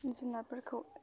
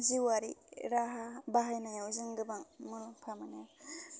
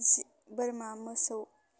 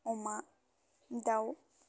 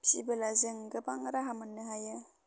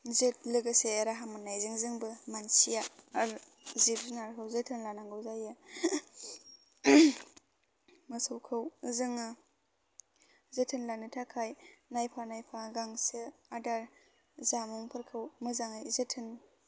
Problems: low volume